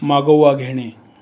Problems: none marked